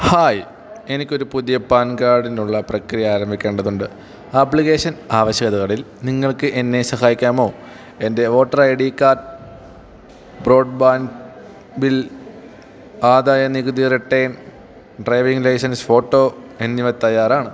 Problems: none marked